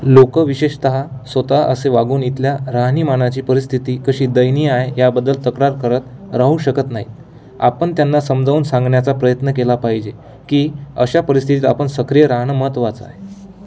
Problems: constant background noise, background conversations at intervals